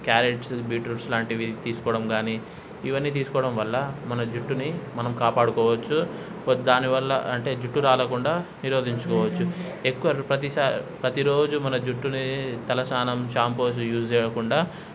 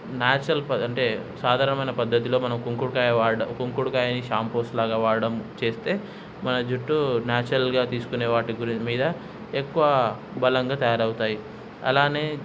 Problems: background sounds at intervals